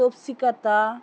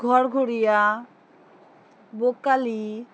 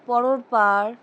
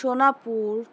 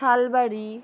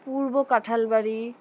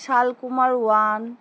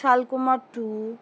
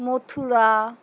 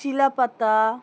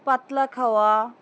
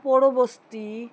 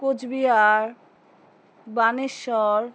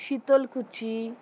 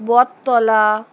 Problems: none marked